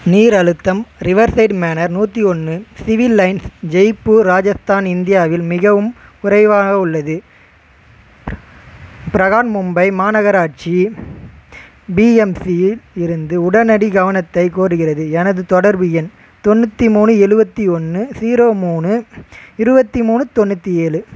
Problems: constant background noise